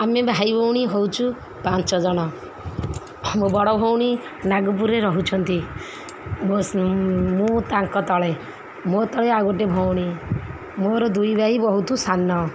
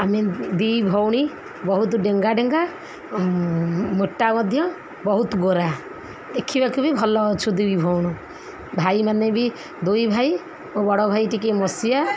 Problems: background conversations at intervals